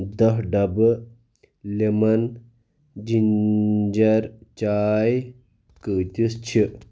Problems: constant background noise